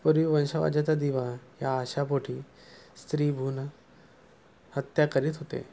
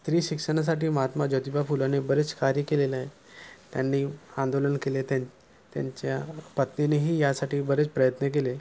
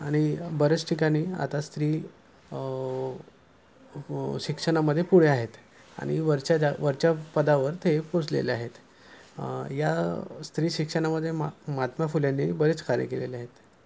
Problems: none marked